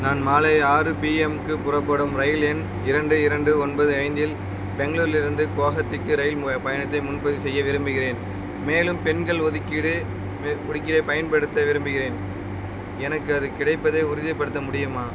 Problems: constant background noise